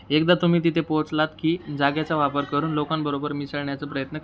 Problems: background sounds at intervals, background conversations at intervals